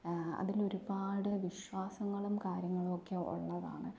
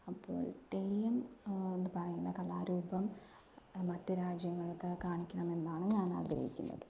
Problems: low volume